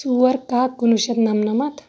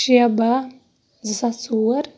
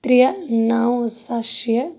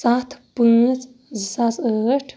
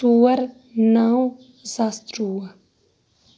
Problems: none marked